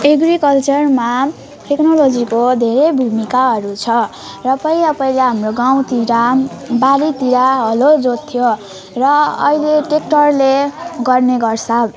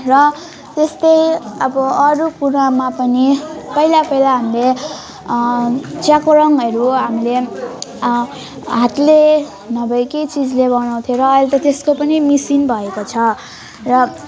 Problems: none marked